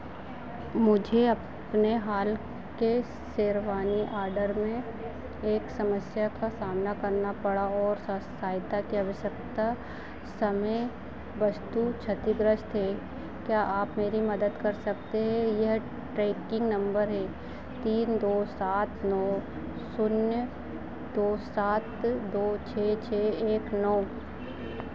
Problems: none marked